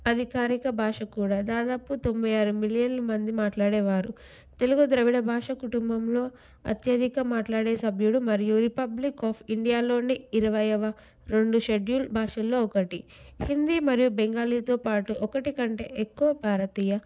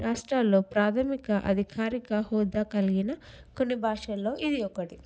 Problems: none marked